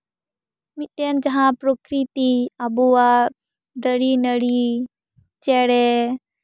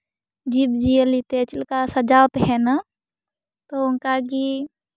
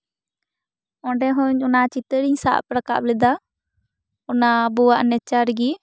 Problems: background sounds at intervals